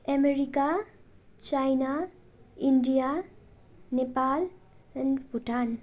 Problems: constant background noise